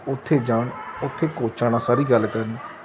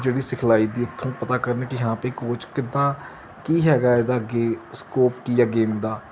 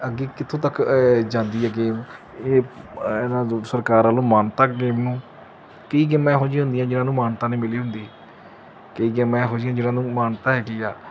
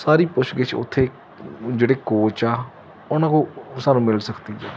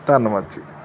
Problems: constant background noise